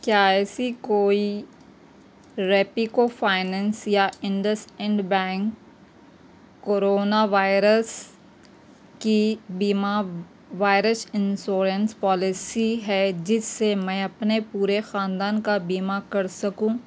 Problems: constant background noise